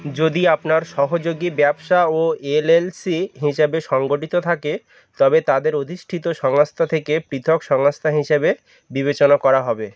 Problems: background sounds at intervals